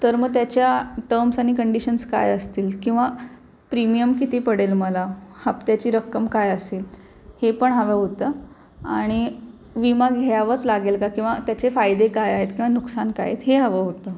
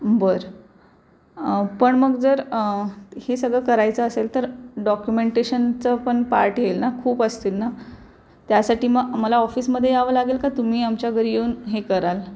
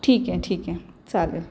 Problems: none marked